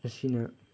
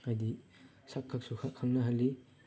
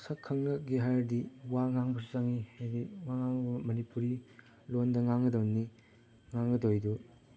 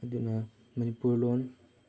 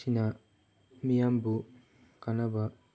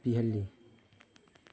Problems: none marked